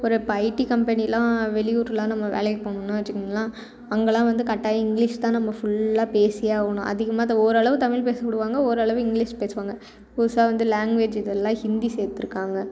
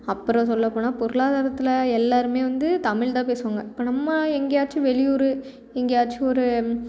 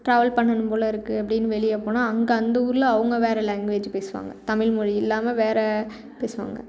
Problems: continuous background conversations